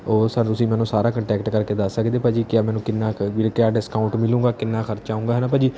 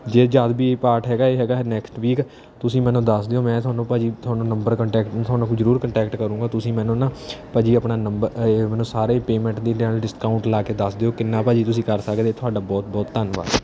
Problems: background sounds at intervals